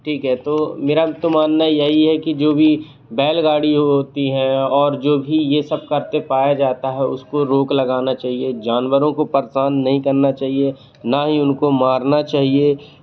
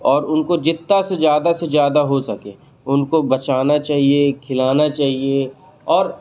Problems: constant background noise